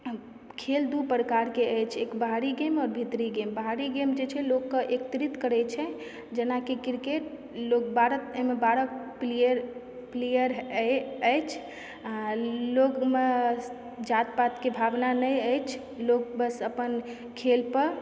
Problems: background sounds at intervals